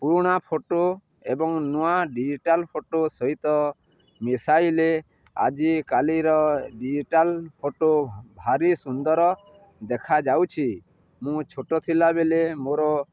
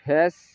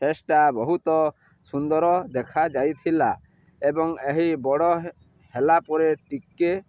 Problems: none marked